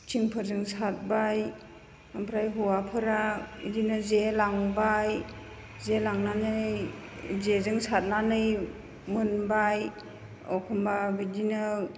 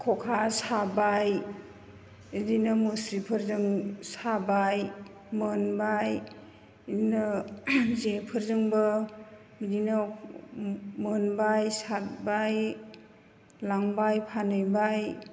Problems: none marked